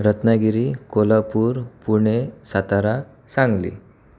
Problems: none marked